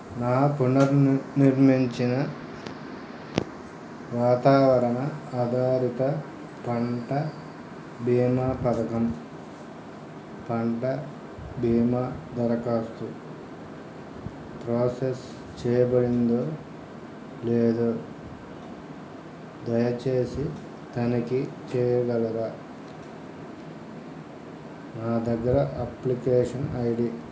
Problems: background sounds at intervals